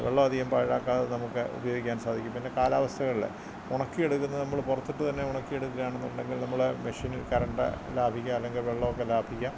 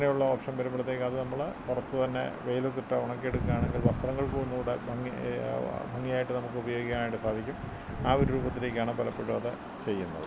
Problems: constant background noise, low volume